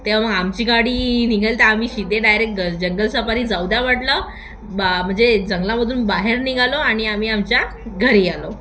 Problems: constant background noise, background conversations at intervals, echo